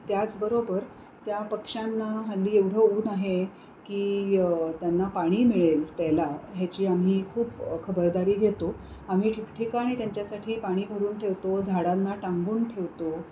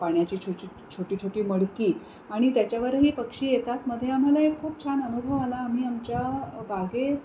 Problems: constant background noise